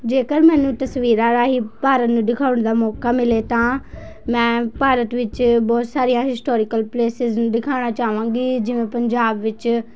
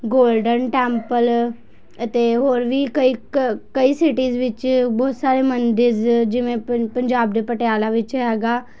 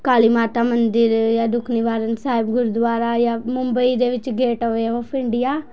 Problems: background sounds at intervals, continuous background conversations